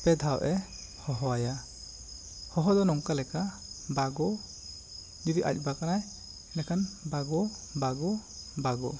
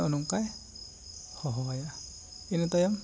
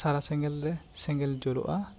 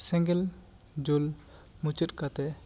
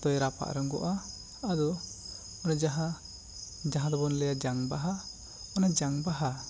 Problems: constant background noise